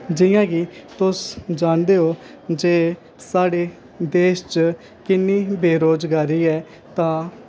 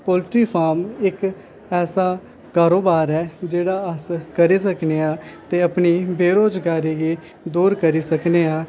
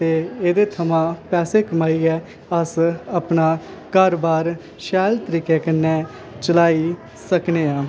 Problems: constant background noise